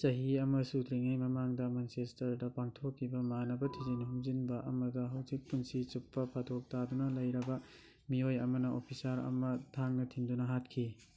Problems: none marked